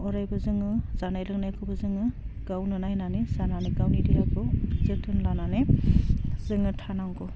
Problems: constant background noise